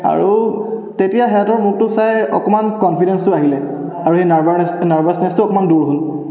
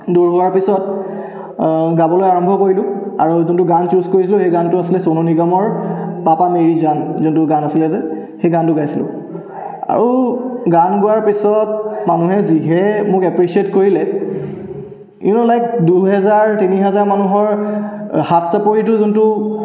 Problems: background sounds at intervals, echo